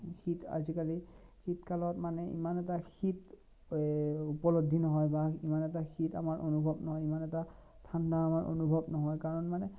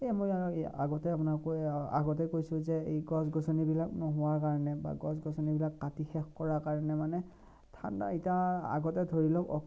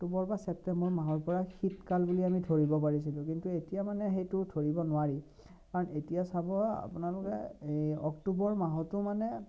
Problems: low volume